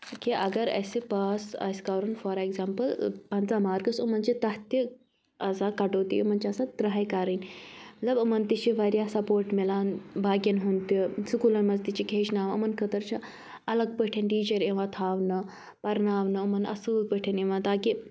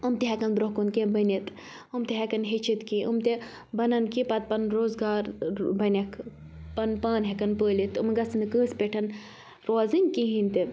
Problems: none marked